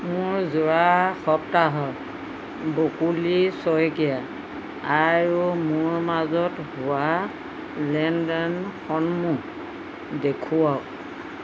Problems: constant background noise